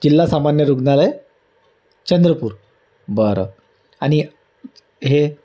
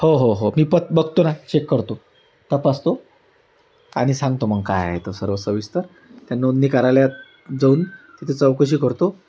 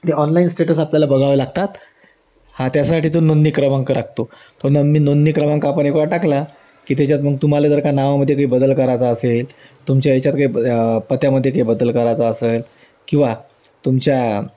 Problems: background sounds at intervals